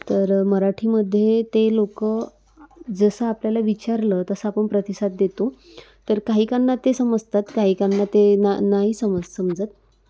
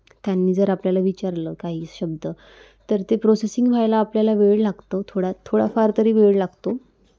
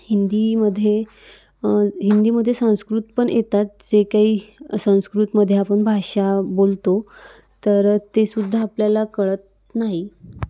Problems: none marked